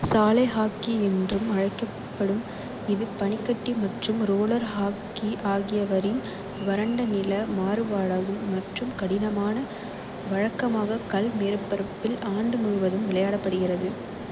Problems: constant background noise